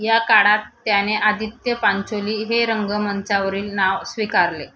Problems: constant background noise